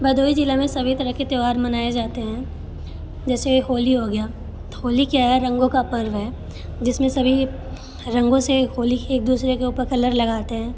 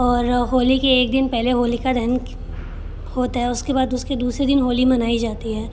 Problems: constant background noise